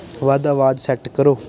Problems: constant background noise